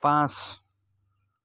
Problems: none marked